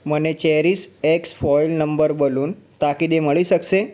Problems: background sounds at intervals